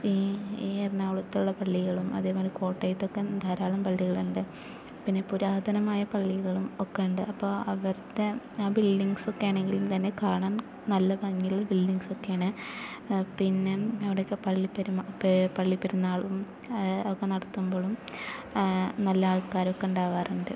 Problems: none marked